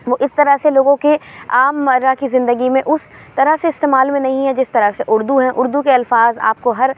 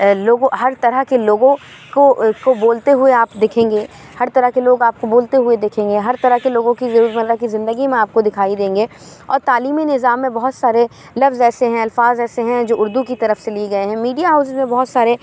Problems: none marked